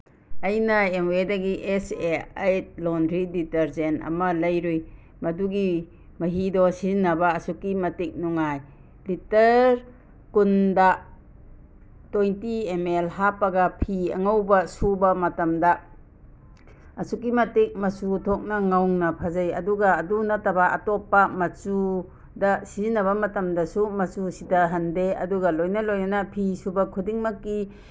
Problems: background sounds at intervals